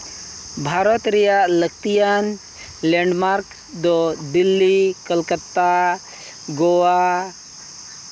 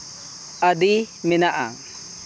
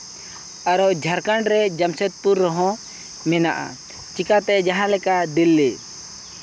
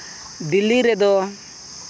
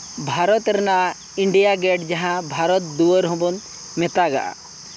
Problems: constant background noise